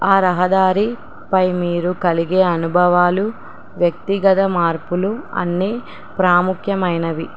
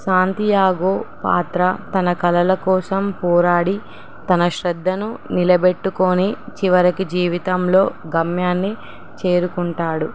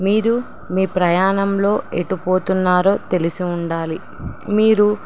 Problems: none marked